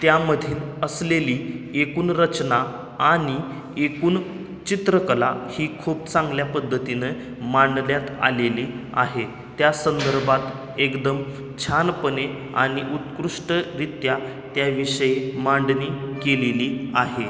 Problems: background sounds at intervals, echo